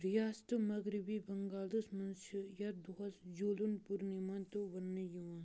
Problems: low volume